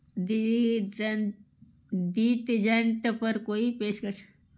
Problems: background sounds at intervals